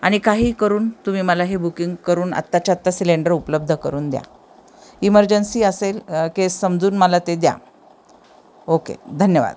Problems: none marked